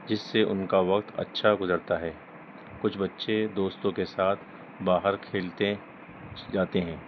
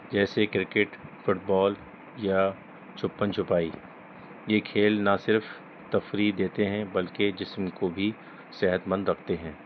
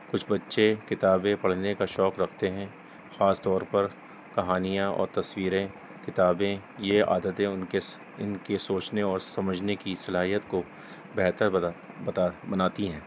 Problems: constant background noise